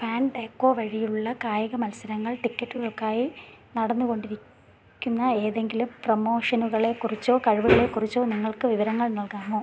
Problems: none marked